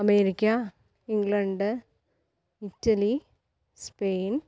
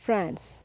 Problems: low volume